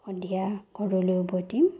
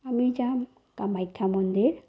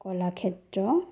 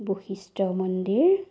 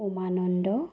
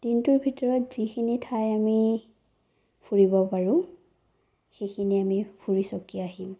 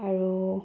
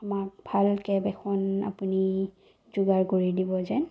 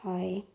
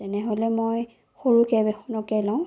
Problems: low volume